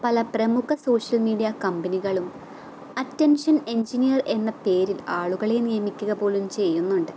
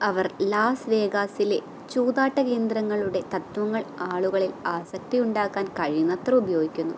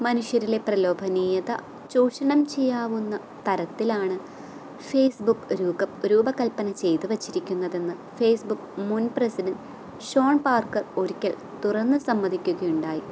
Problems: none marked